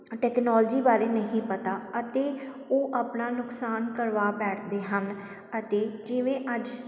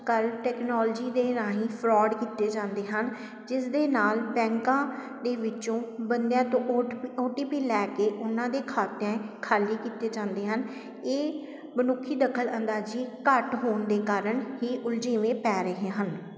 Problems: constant background noise